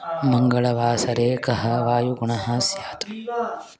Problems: continuous background conversations